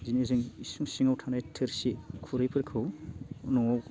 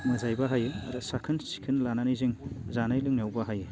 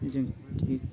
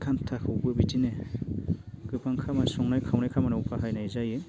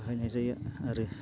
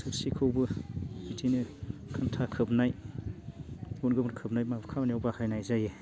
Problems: none marked